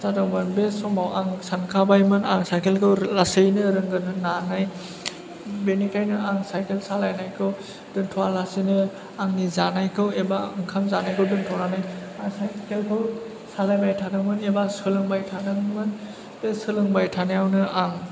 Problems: background sounds at intervals